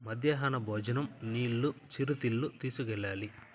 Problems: constant background noise, low volume